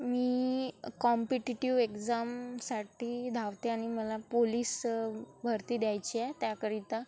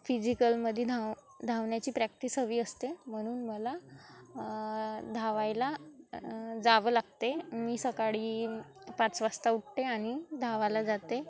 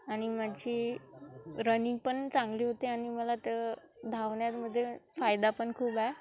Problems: constant background noise